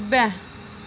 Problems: constant background noise